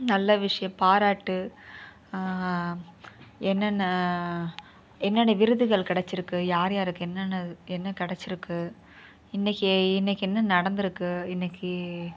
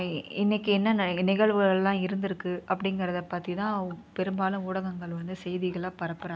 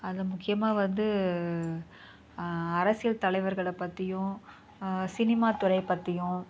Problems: background sounds at intervals, low volume